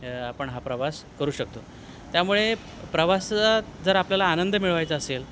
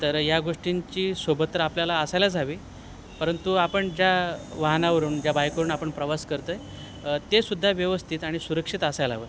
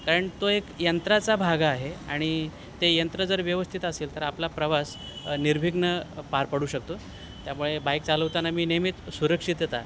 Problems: none marked